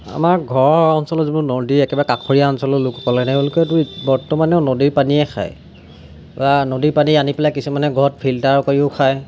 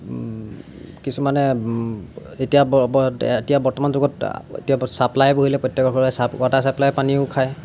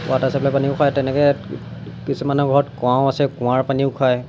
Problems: none marked